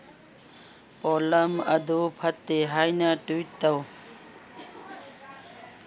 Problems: none marked